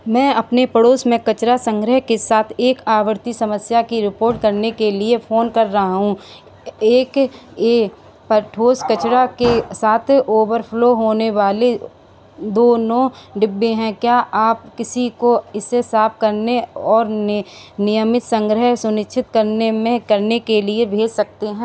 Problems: none marked